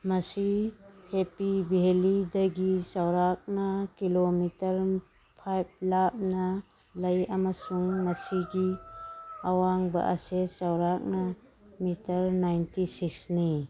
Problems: background sounds at intervals